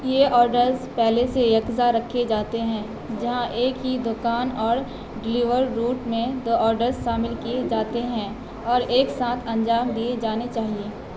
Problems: constant background noise